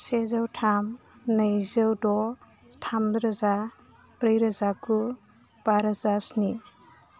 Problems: constant background noise